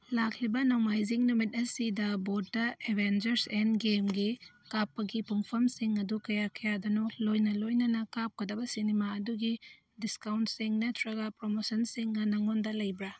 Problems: none marked